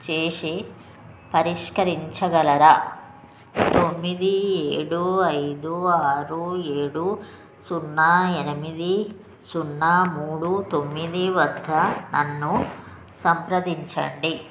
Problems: constant background noise